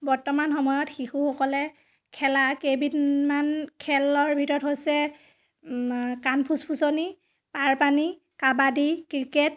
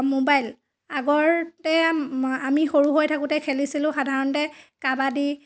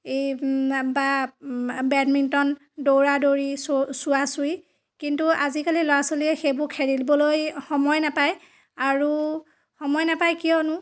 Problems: none marked